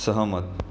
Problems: background sounds at intervals